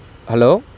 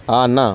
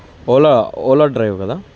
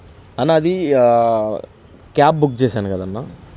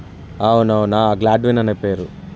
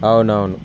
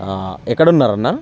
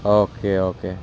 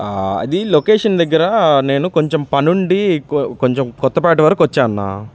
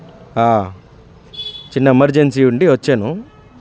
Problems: background sounds at intervals, continuous background conversations